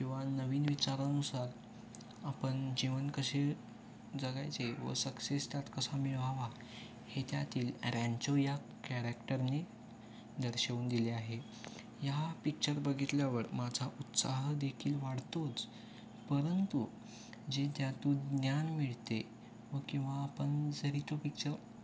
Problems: constant background noise, background conversations at intervals